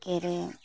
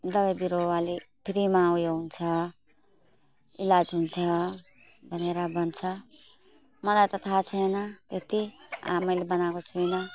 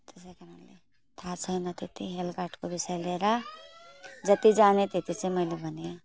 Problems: background sounds at intervals